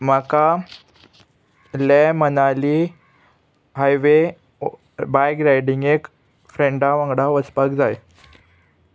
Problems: constant background noise, background conversations at intervals